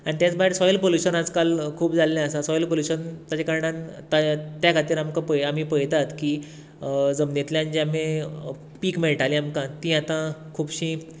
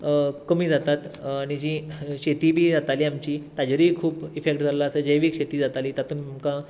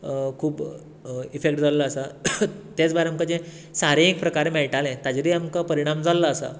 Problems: constant background noise